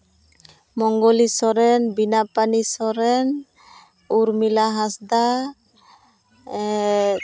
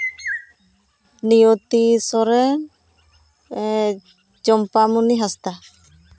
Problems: constant background noise